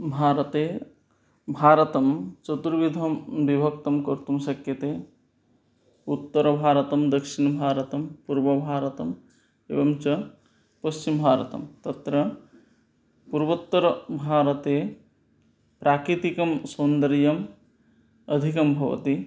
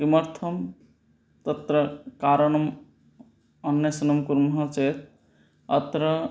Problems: none marked